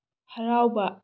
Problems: low volume